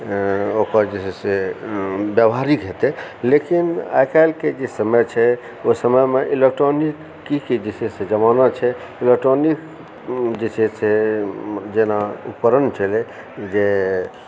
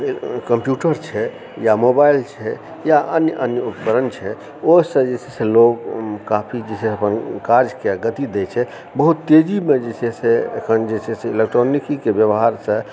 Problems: background sounds at intervals